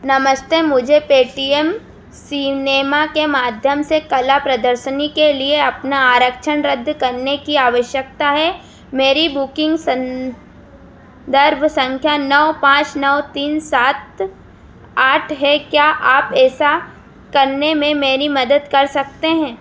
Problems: constant background noise